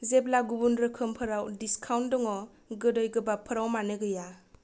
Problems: none marked